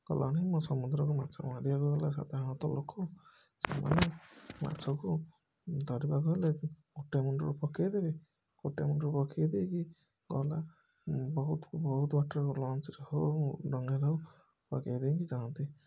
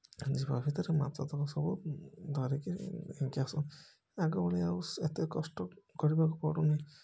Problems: background sounds at intervals